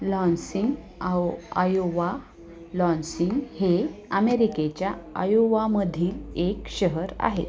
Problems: constant background noise, background conversations at intervals